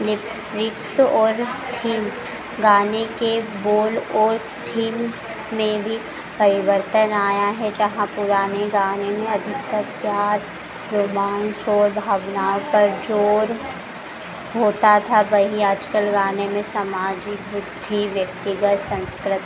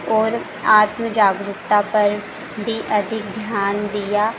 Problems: background sounds at intervals